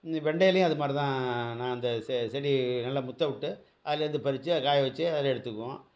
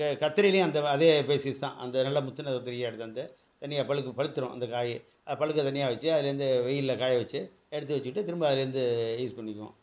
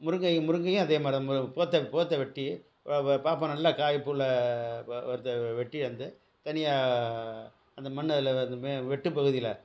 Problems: background sounds at intervals